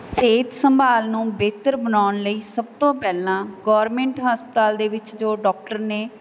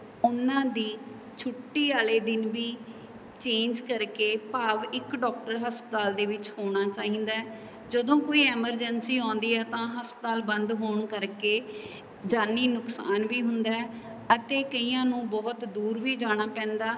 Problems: background sounds at intervals